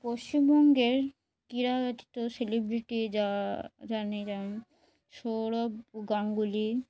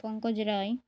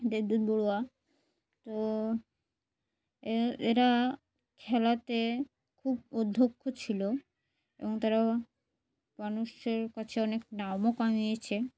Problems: background sounds at intervals